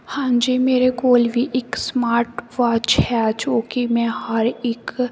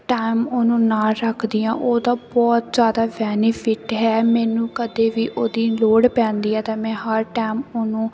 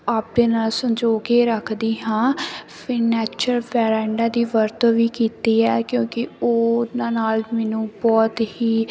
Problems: constant background noise